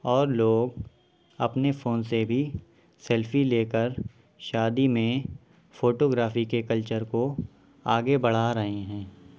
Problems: background sounds at intervals